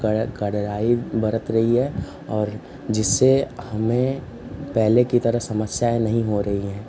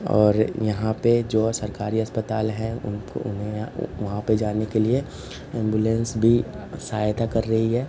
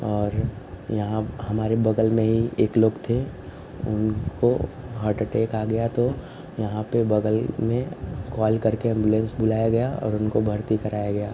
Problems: none marked